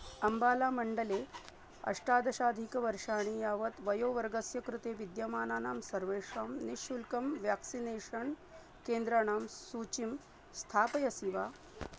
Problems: background sounds at intervals, low volume